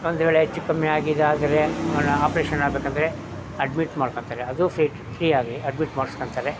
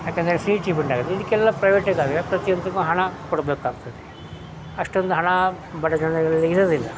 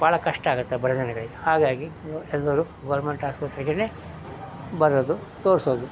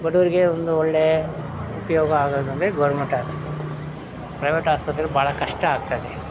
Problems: constant background noise